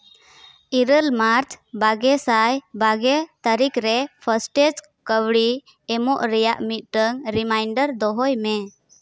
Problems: none marked